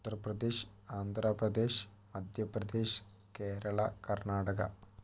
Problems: low volume